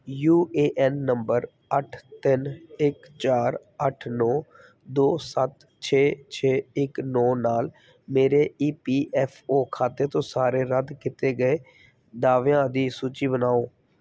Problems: background sounds at intervals